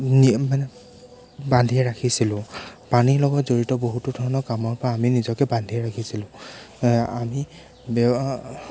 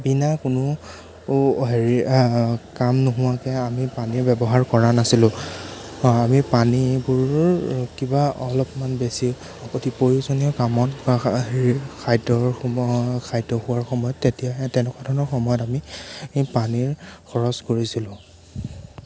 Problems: background sounds at intervals